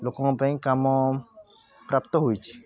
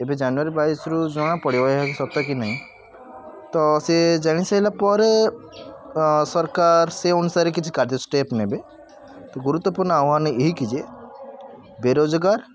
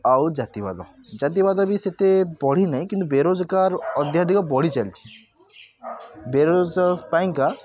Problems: constant background noise, continuous background conversations